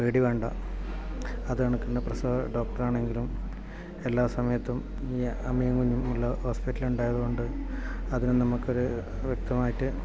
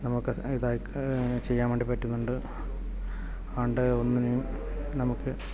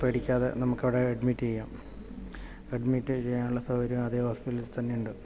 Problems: background conversations at intervals, low volume